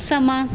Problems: background sounds at intervals